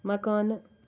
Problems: constant background noise